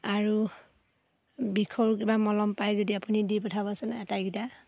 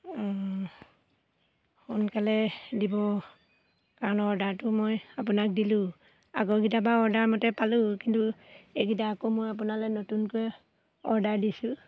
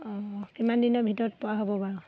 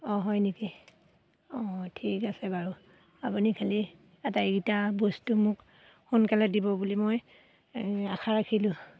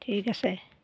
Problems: none marked